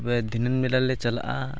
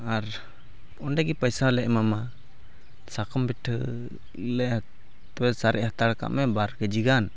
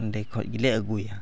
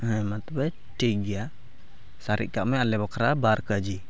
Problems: none marked